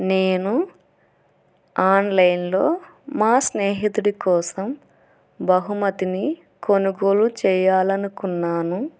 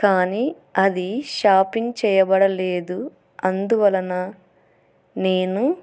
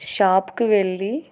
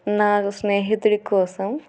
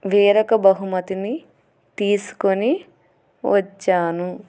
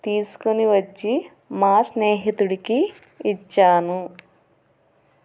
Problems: none marked